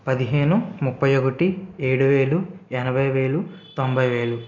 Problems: background sounds at intervals